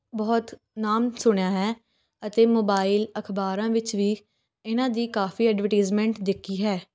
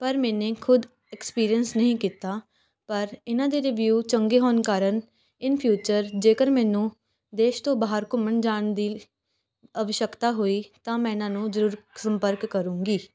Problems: none marked